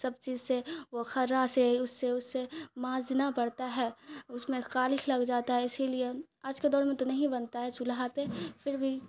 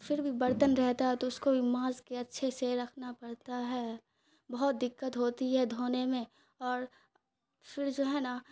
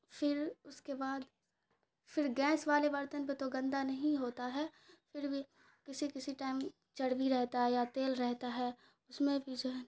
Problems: none marked